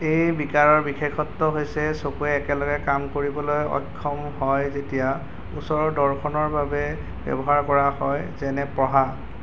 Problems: constant background noise